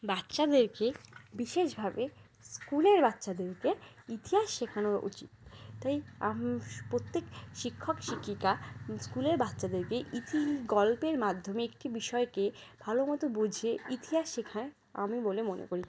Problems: constant background noise